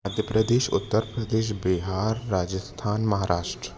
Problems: constant background noise, background conversations at intervals